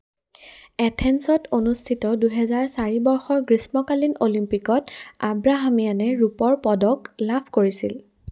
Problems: background sounds at intervals